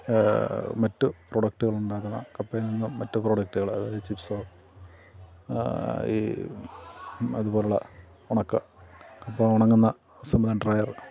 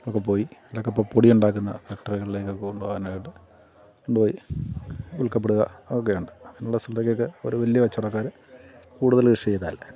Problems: continuous background conversations